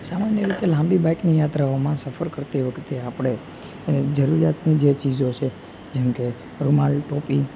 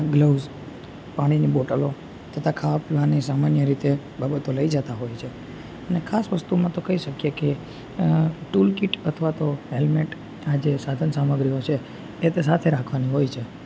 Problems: constant background noise